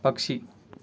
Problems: none marked